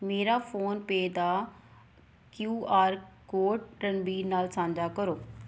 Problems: background sounds at intervals